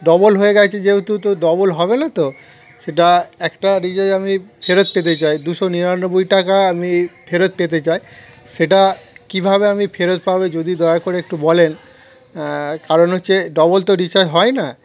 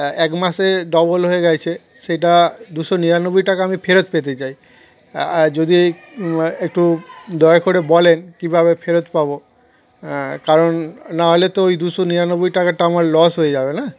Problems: constant background noise, continuous background conversations